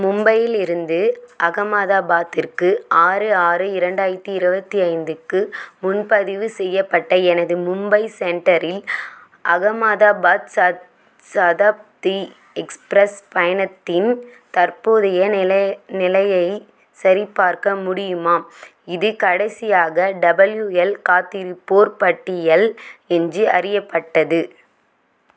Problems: none marked